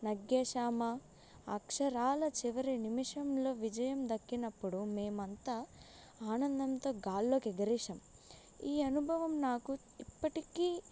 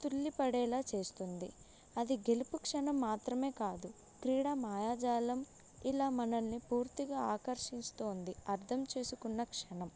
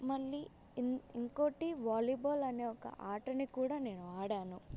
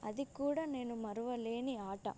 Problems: none marked